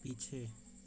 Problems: constant background noise